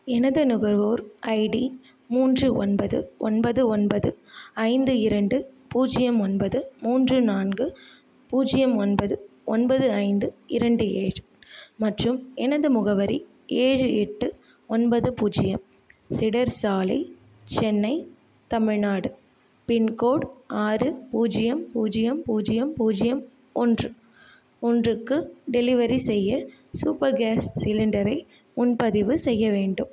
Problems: none marked